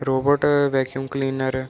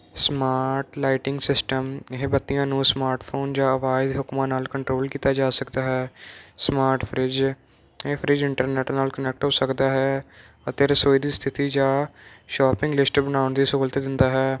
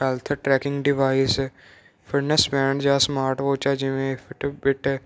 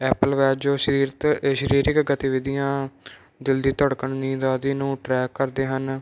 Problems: none marked